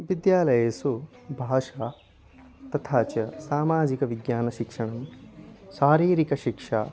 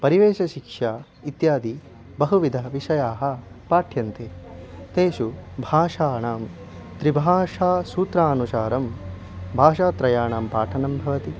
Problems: constant background noise, continuous background conversations